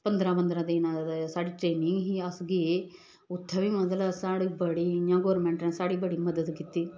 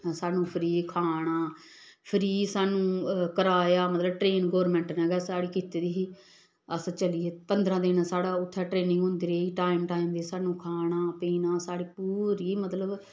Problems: none marked